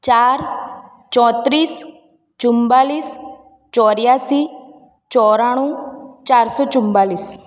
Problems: none marked